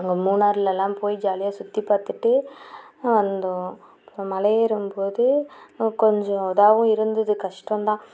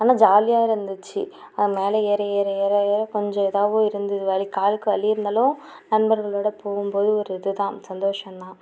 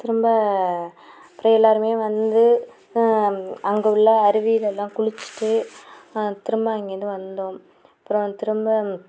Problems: none marked